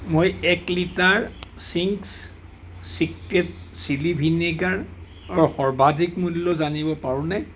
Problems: none marked